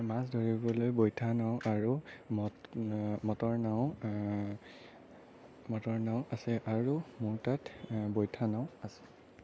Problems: none marked